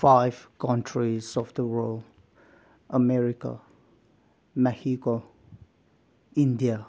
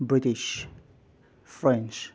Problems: none marked